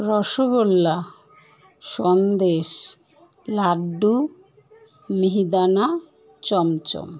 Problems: constant background noise